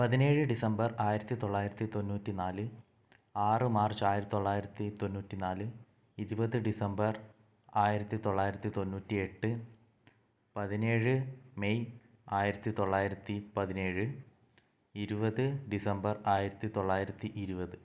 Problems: low volume